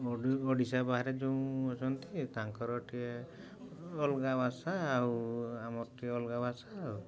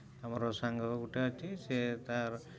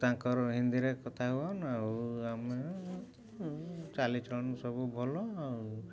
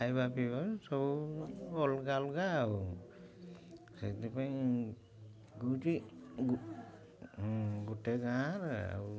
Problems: low volume